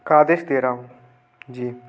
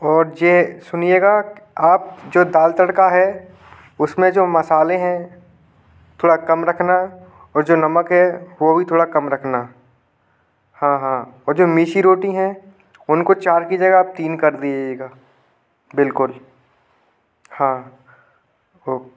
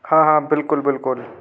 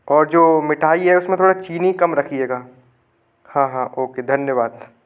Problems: constant background noise